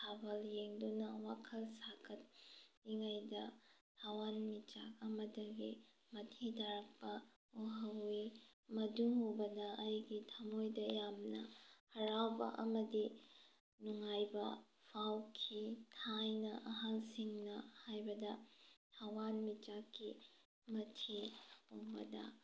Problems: none marked